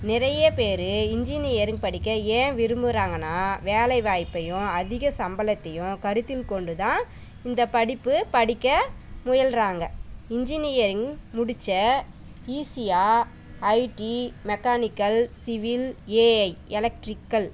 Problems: background sounds at intervals